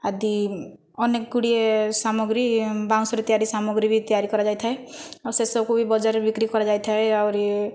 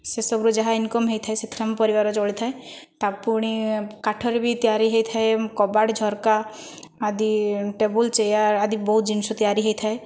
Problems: none marked